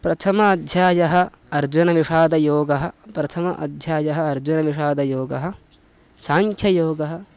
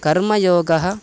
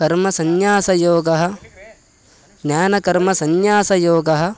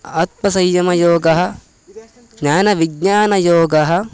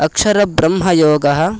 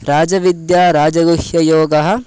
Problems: constant background noise